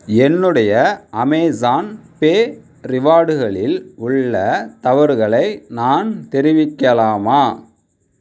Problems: none marked